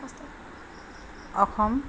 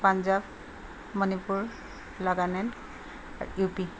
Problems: constant background noise